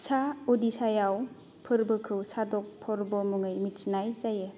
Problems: background sounds at intervals